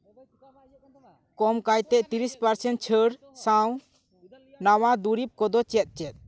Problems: background sounds at intervals, continuous background conversations